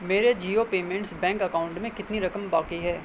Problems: constant background noise